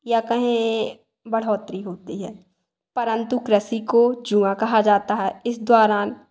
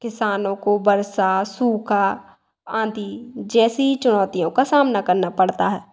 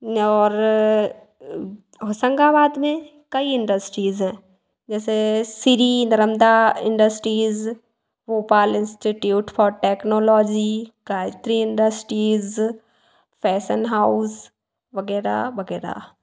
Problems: echo